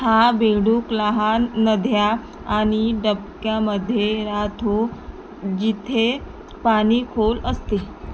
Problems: constant background noise